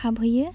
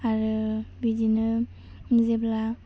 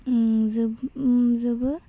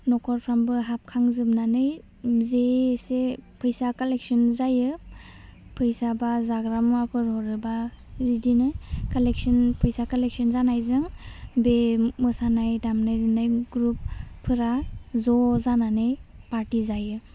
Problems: low volume